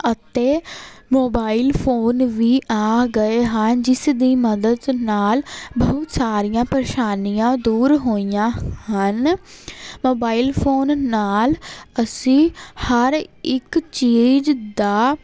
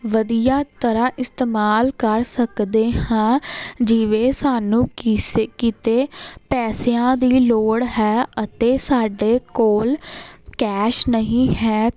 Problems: constant background noise